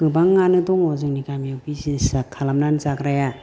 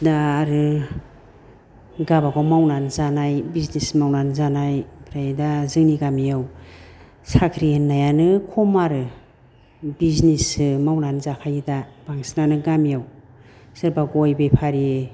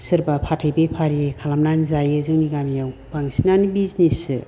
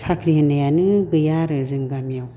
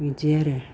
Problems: none marked